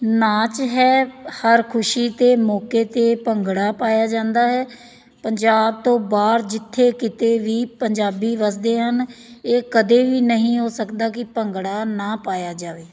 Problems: none marked